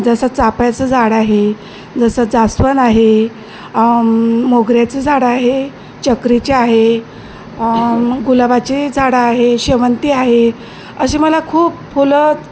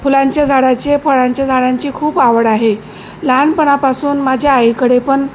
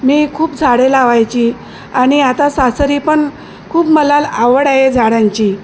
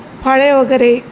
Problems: none marked